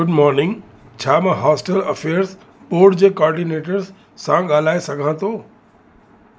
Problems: constant background noise, echo